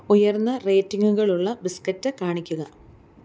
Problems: constant background noise